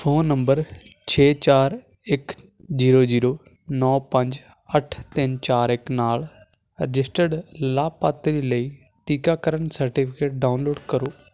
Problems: constant background noise